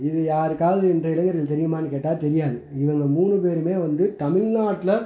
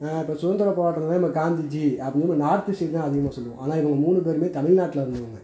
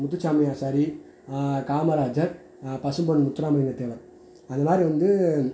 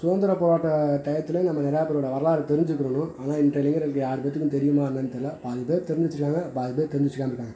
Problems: none marked